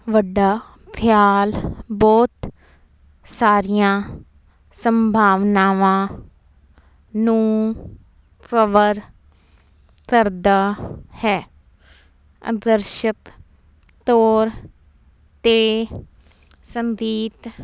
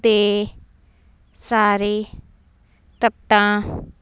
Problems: none marked